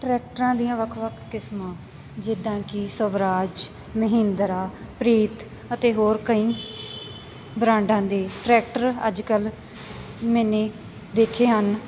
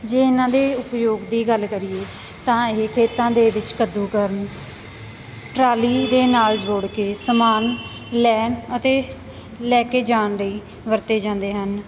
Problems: constant background noise